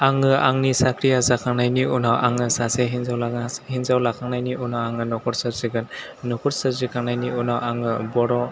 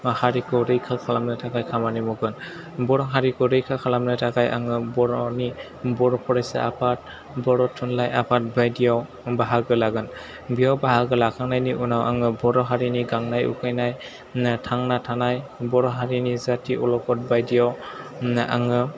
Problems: none marked